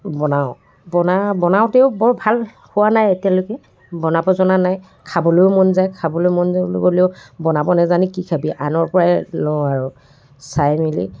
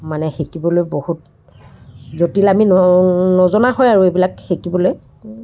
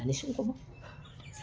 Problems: constant background noise, background conversations at intervals